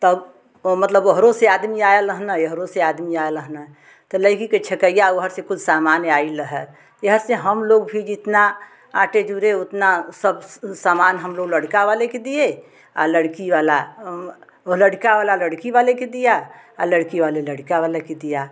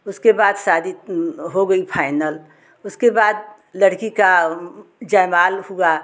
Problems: none marked